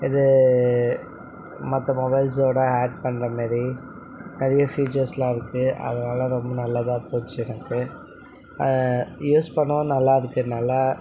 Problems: background conversations at intervals